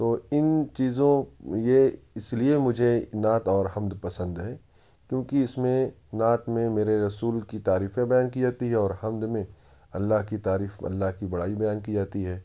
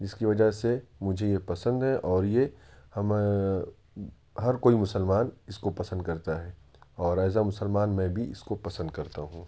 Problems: none marked